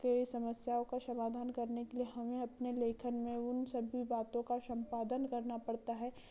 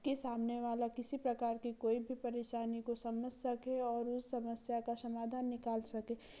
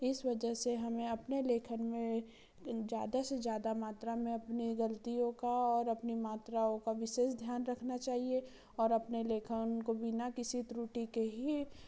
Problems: low volume